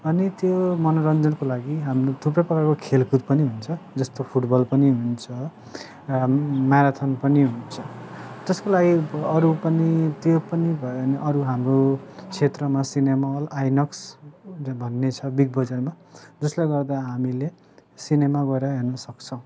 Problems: background sounds at intervals